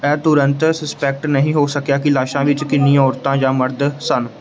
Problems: background conversations at intervals